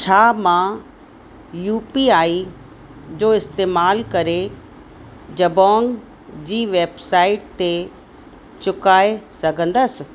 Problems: constant background noise, echo